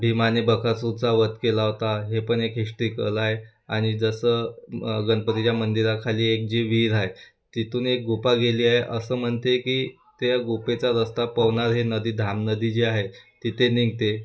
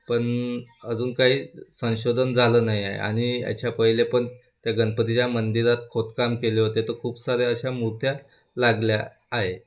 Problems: none marked